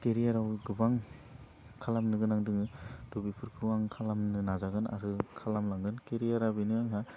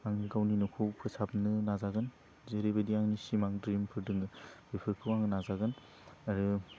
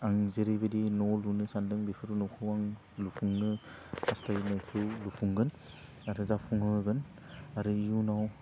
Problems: constant background noise